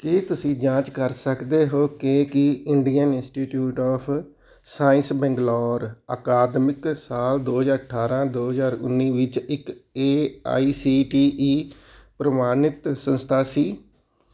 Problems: background sounds at intervals